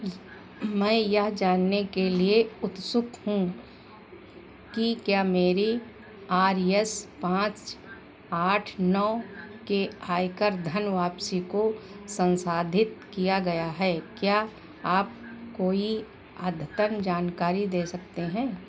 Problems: constant background noise